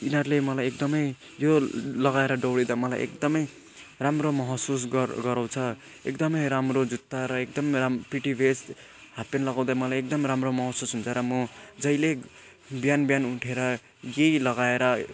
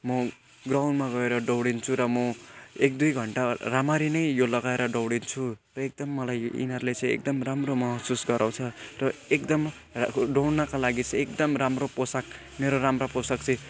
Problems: background sounds at intervals